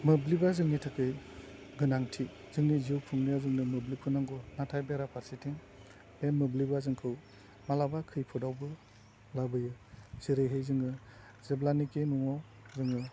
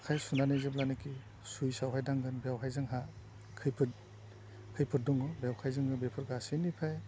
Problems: low volume